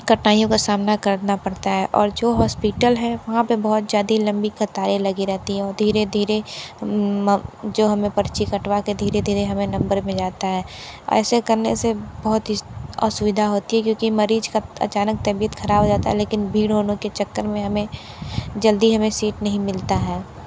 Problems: constant background noise